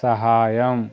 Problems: constant background noise